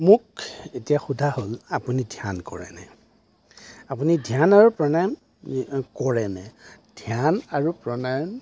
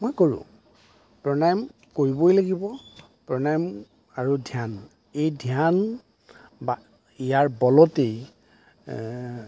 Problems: none marked